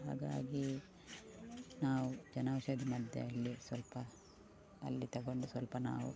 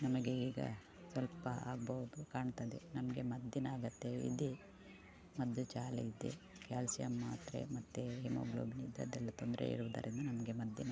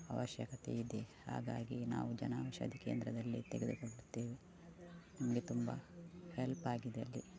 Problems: background sounds at intervals